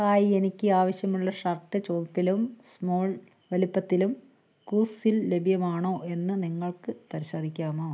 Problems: none marked